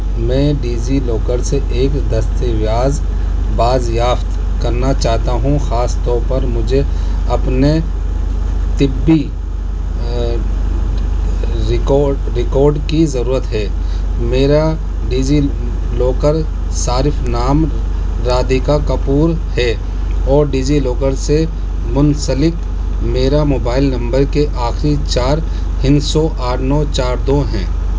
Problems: constant background noise, low volume